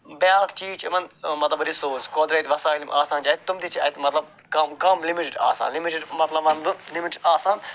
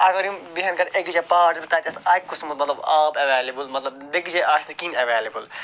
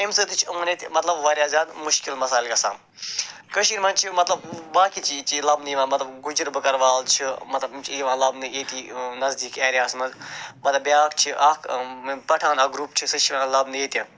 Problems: none marked